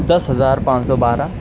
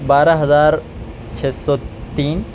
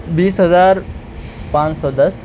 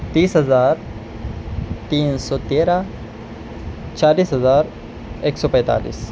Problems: constant background noise